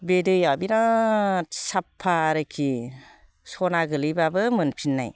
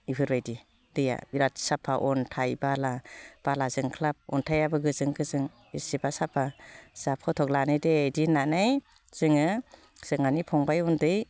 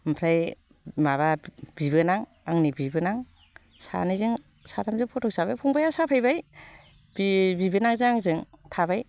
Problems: constant background noise